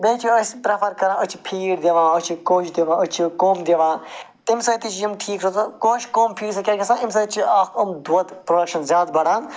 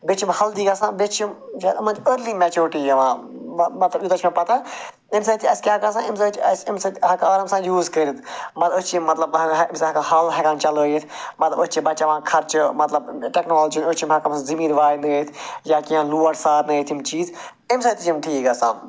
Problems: background sounds at intervals